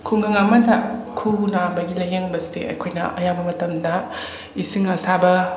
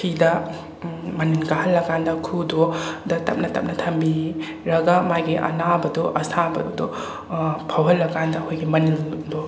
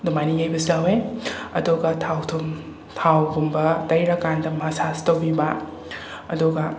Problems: constant background noise